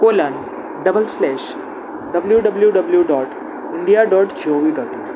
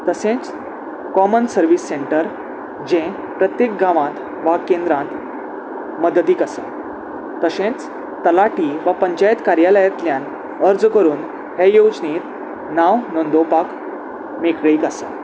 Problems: constant background noise